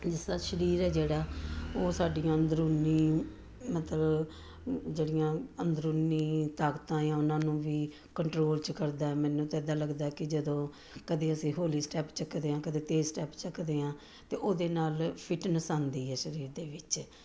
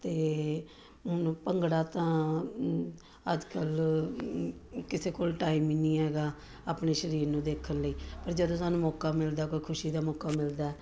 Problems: none marked